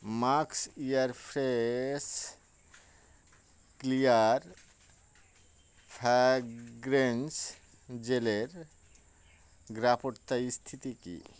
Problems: constant background noise